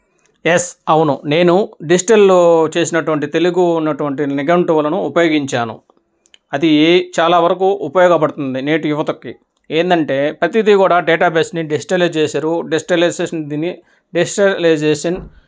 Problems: echo